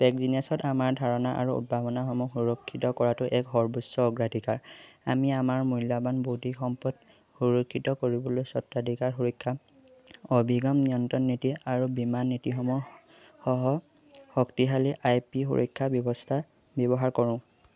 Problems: constant background noise